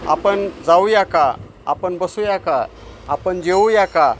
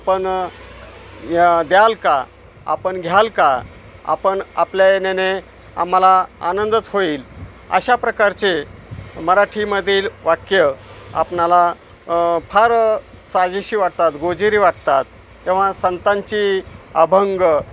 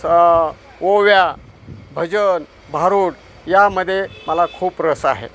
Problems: constant background noise